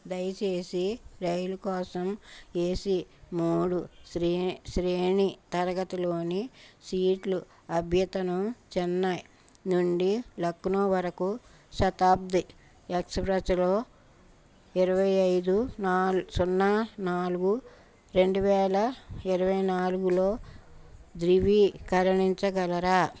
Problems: background sounds at intervals